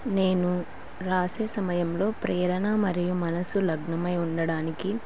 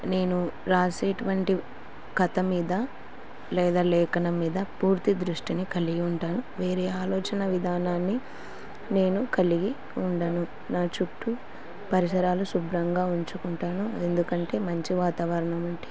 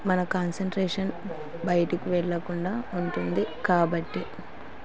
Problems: constant background noise